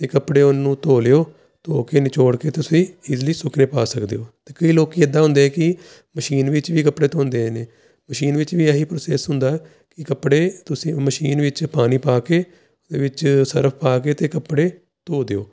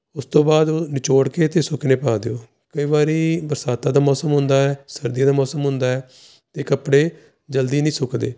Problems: none marked